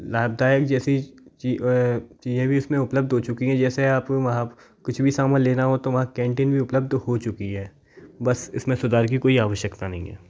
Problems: background sounds at intervals, background conversations at intervals